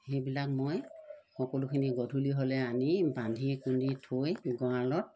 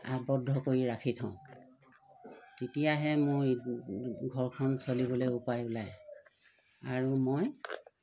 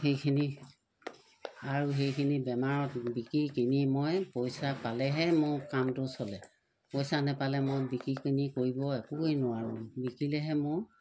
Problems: none marked